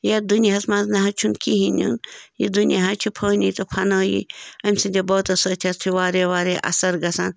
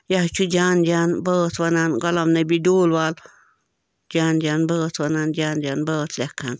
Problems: background sounds at intervals